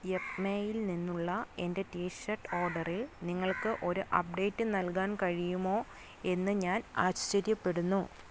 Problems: none marked